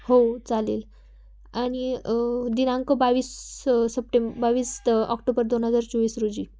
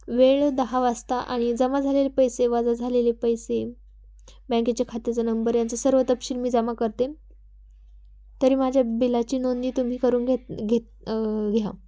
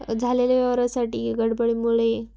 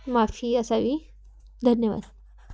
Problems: constant background noise, background conversations at intervals